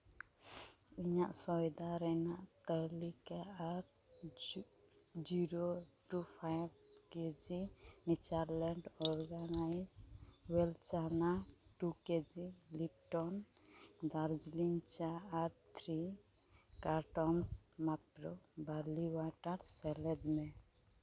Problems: none marked